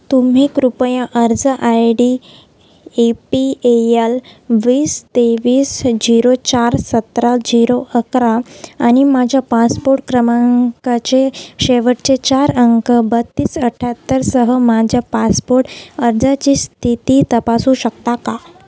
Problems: none marked